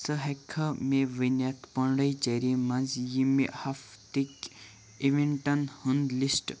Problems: none marked